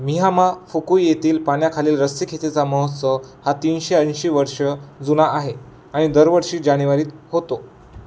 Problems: constant background noise